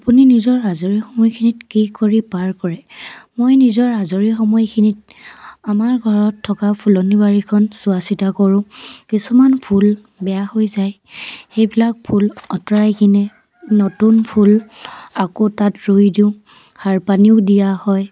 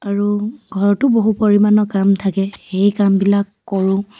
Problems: constant background noise